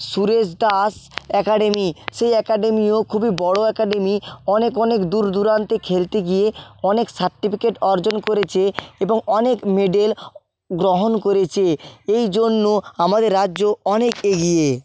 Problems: background sounds at intervals, background conversations at intervals